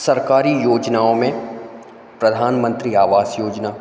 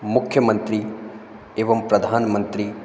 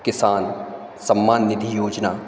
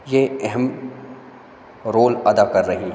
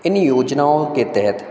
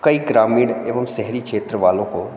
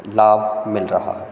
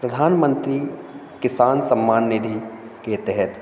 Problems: none marked